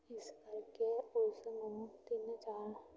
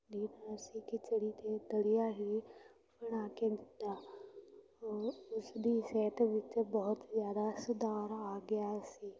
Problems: continuous background conversations